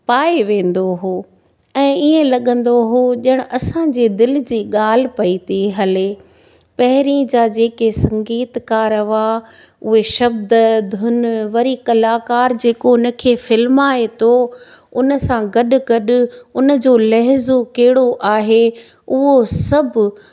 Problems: none marked